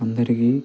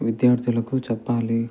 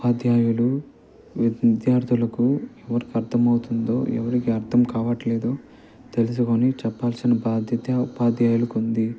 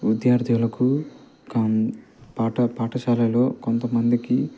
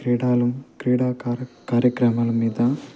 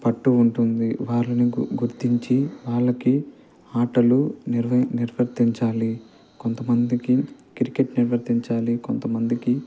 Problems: constant background noise, low volume